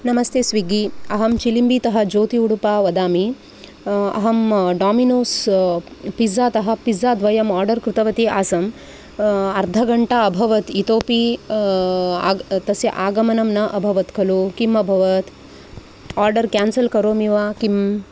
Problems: none marked